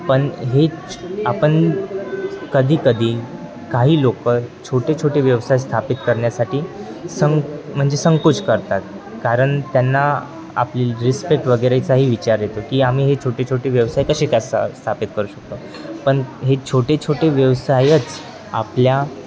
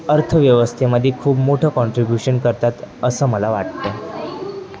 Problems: constant background noise, continuous background conversations